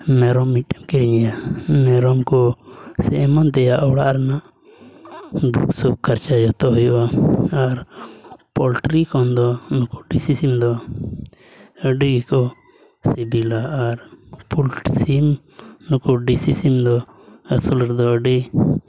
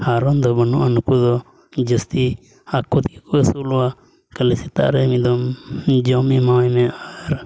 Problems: constant background noise, low volume